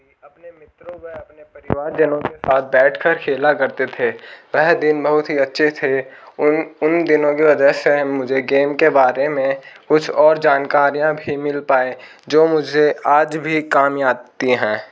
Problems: background sounds at intervals